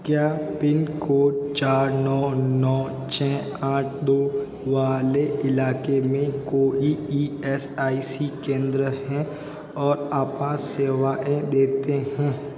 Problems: constant background noise